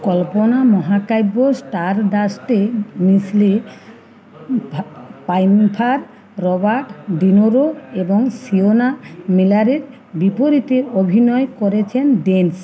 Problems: none marked